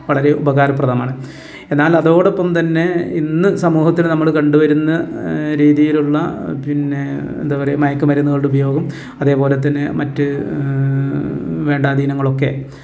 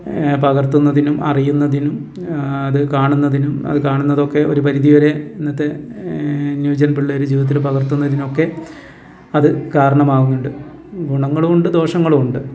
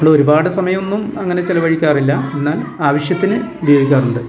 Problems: none marked